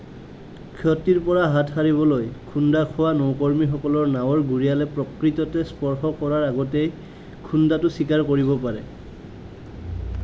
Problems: none marked